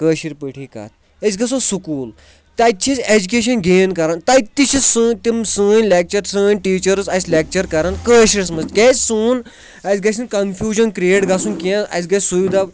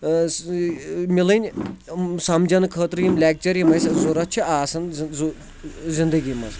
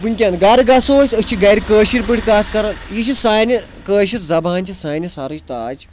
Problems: constant background noise